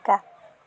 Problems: continuous background conversations